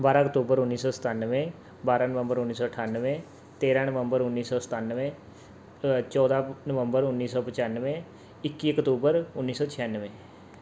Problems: background sounds at intervals